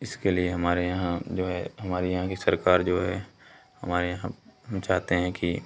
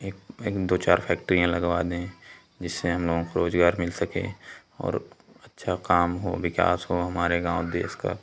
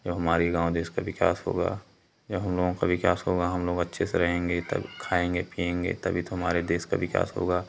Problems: none marked